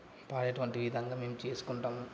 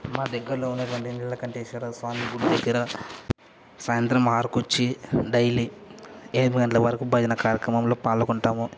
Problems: none marked